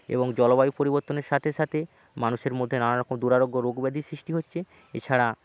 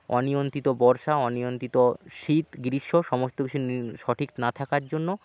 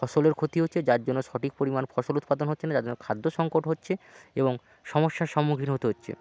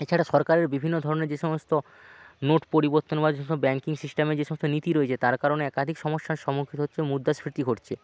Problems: background sounds at intervals